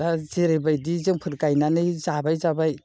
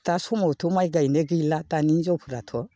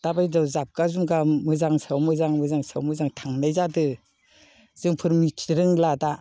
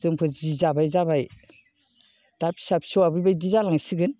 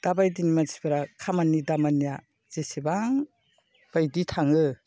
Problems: none marked